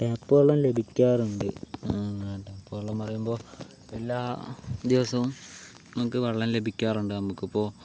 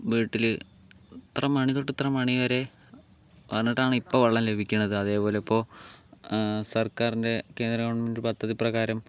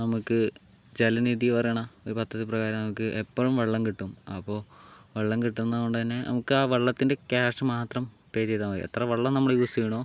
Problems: background sounds at intervals